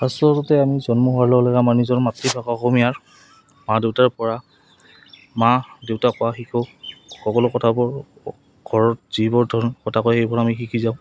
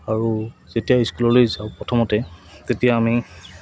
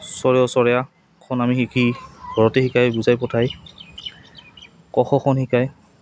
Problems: background sounds at intervals